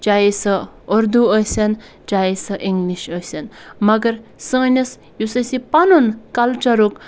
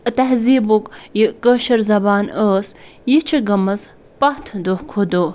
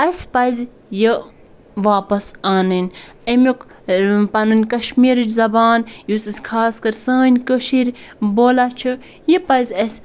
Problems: background sounds at intervals